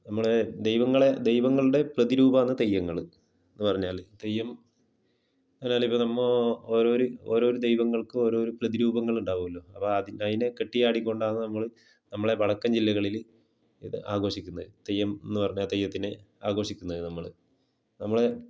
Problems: low volume